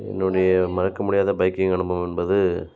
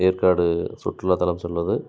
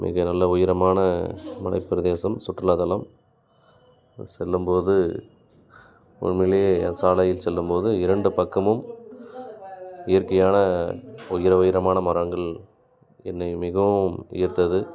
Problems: continuous background conversations